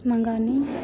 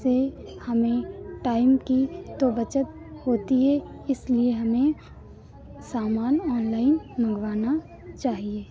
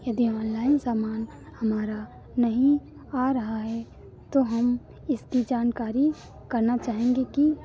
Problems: none marked